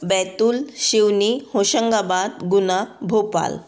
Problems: background conversations at intervals